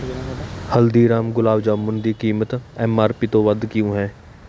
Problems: constant background noise